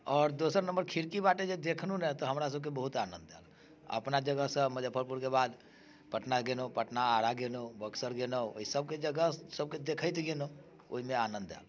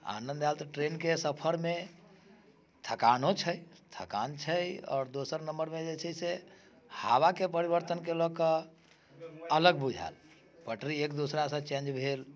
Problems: none marked